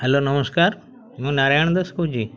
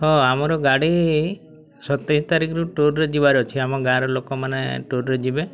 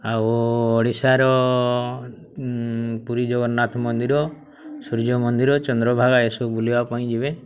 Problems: constant background noise, continuous background conversations